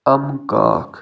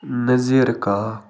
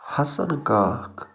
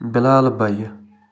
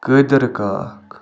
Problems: constant background noise